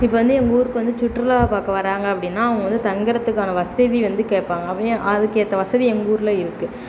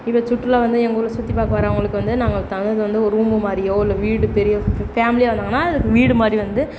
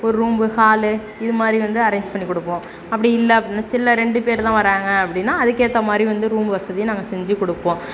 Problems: constant background noise